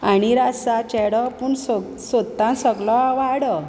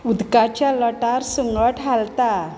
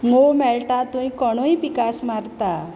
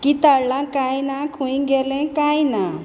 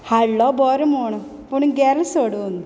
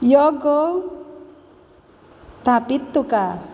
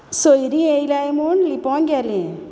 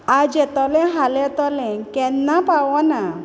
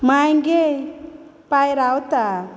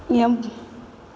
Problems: none marked